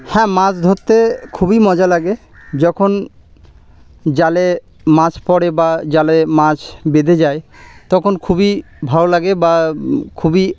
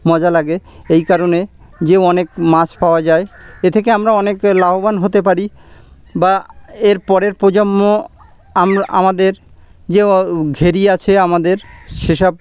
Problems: none marked